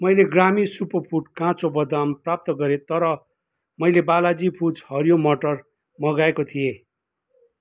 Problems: none marked